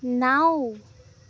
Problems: none marked